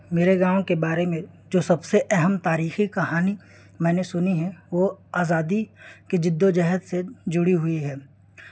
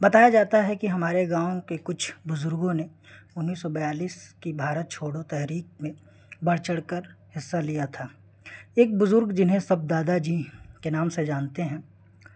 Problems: constant background noise